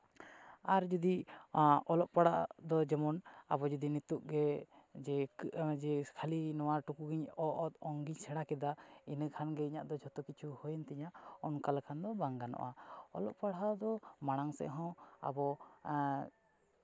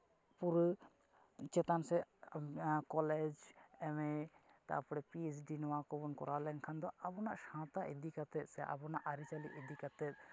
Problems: none marked